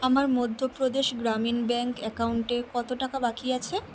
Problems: constant background noise